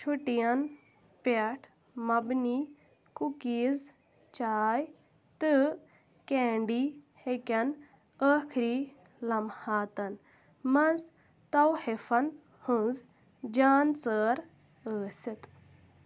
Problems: background sounds at intervals